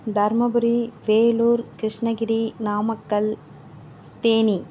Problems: none marked